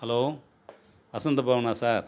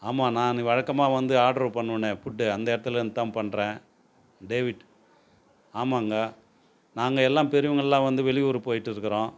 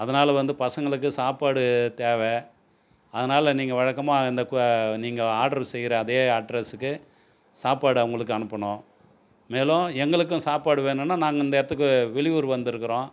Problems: background sounds at intervals